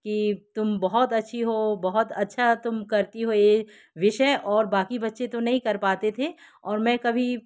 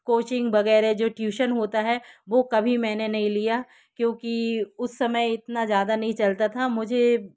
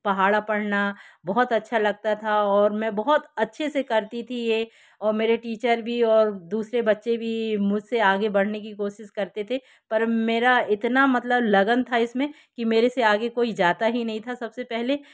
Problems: background sounds at intervals